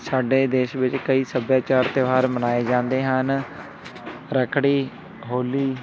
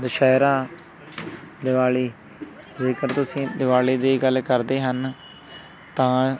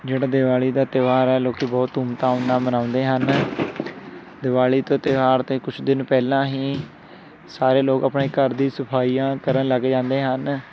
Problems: constant background noise, background conversations at intervals